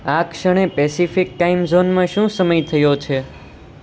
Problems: none marked